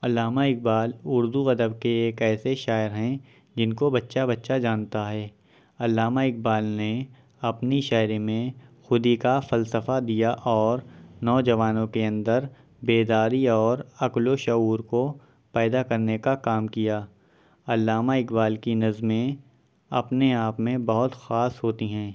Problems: constant background noise